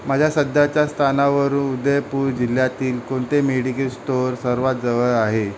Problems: constant background noise